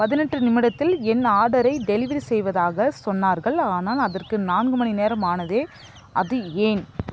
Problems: background sounds at intervals, background conversations at intervals